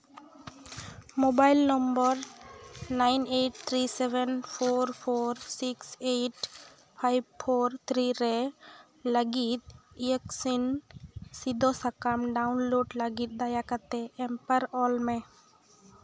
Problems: background sounds at intervals